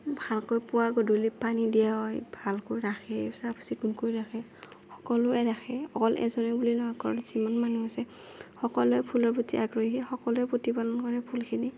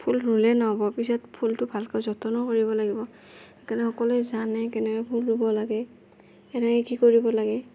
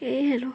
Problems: none marked